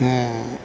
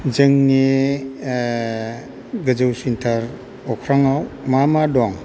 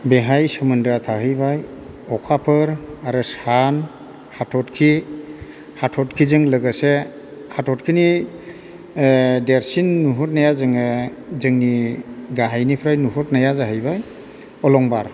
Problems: constant background noise